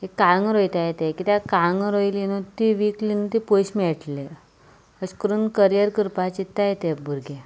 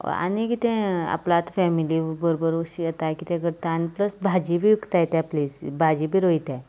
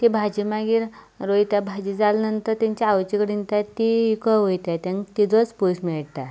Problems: background sounds at intervals